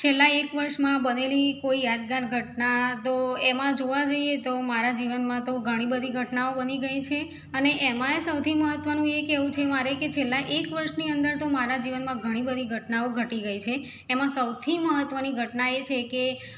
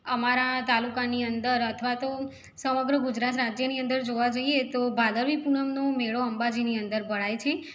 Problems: background sounds at intervals